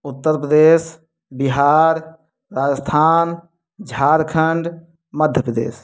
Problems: none marked